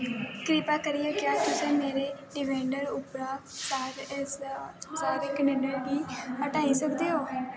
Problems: constant background noise, background conversations at intervals